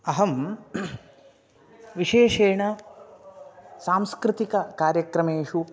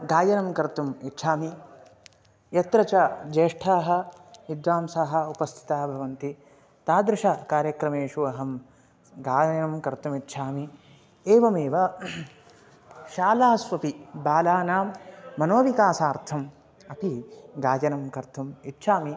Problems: background conversations at intervals